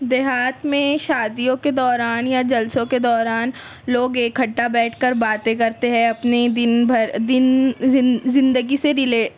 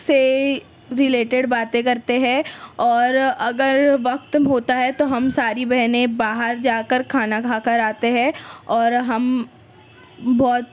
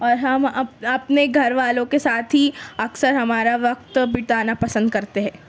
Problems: constant background noise